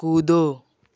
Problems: none marked